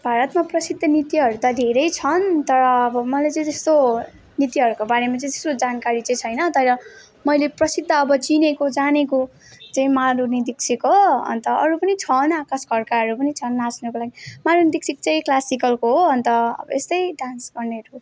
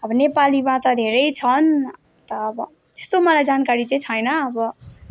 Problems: background sounds at intervals